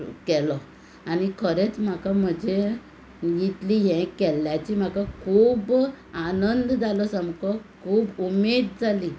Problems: constant background noise